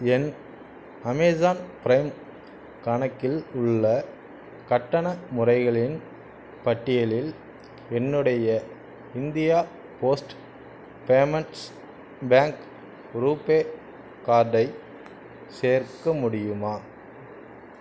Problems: constant background noise